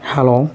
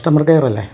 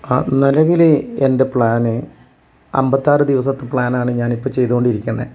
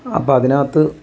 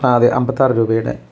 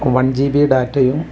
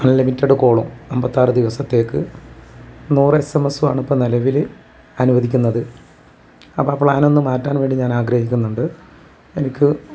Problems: none marked